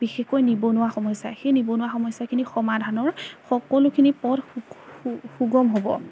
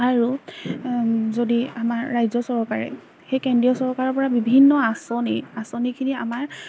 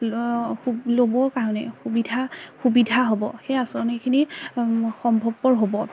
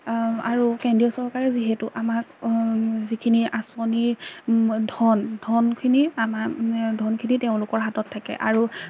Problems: none marked